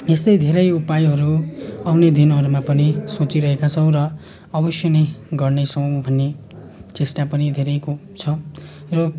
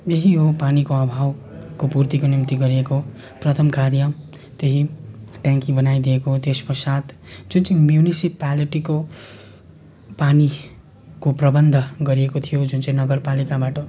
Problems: continuous background conversations